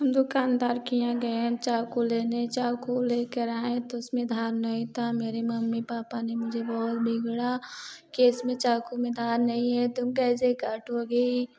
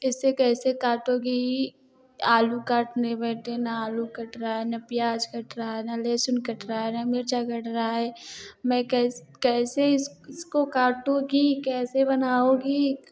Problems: none marked